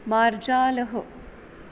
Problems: constant background noise